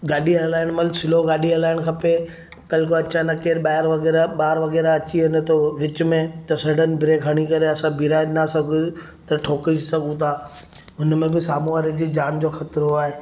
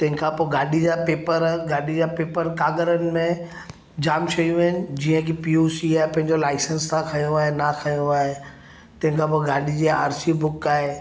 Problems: none marked